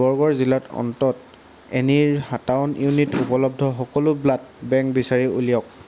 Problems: none marked